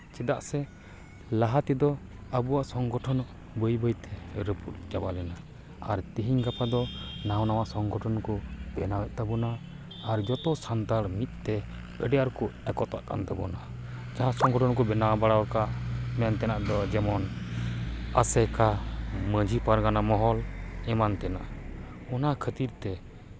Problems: constant background noise